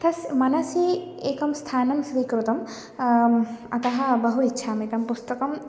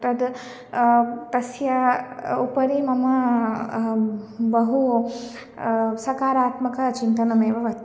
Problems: none marked